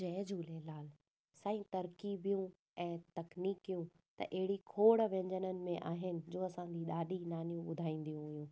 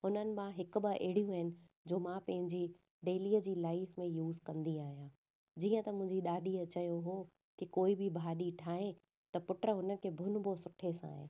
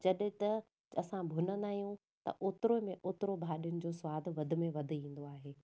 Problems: none marked